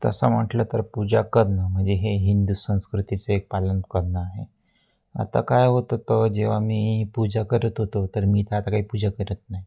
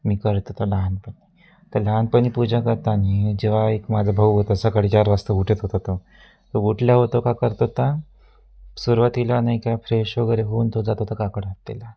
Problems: constant background noise